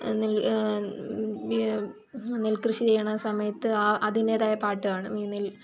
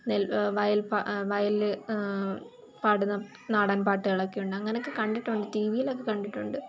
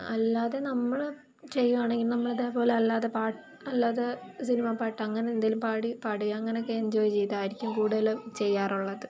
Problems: constant background noise